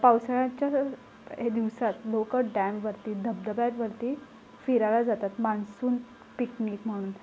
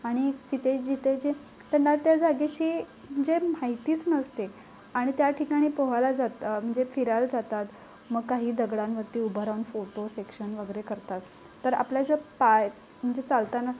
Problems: constant background noise